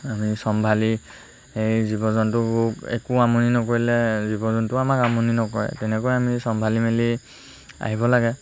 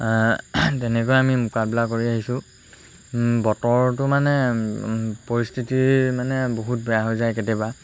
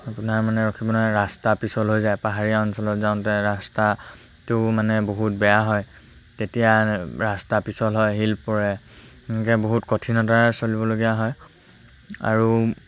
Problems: constant background noise